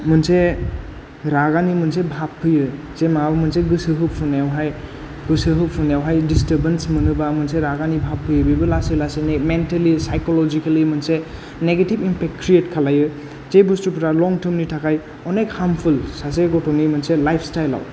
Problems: none marked